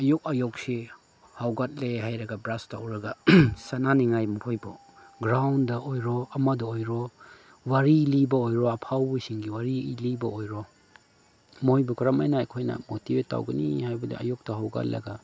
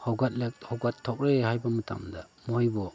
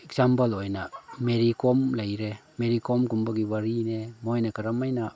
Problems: background sounds at intervals, background conversations at intervals